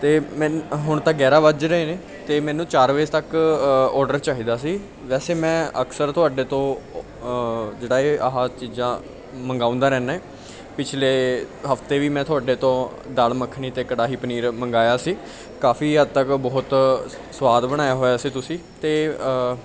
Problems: continuous background conversations